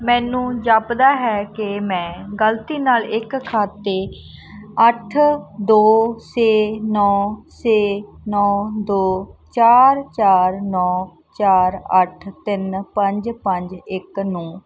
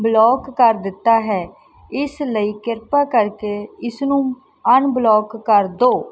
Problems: background sounds at intervals